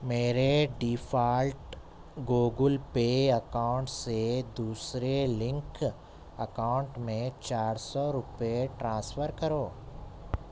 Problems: none marked